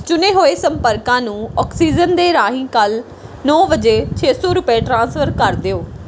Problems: background sounds at intervals